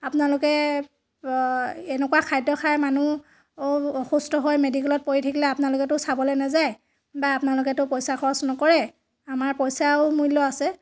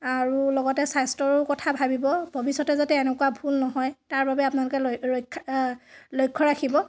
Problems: constant background noise